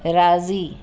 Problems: constant background noise, echo